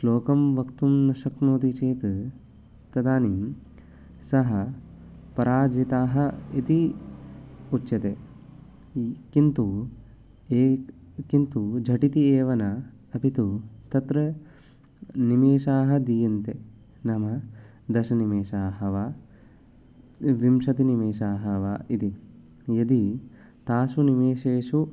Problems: none marked